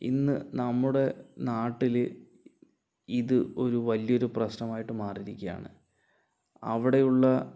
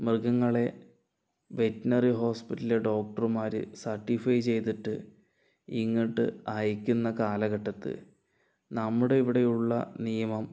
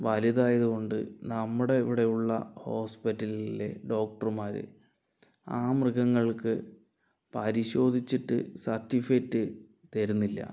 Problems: low volume